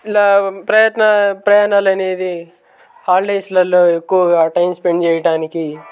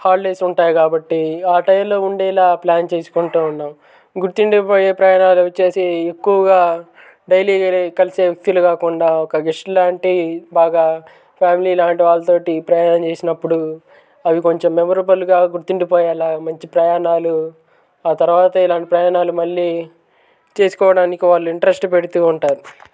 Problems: background sounds at intervals, background conversations at intervals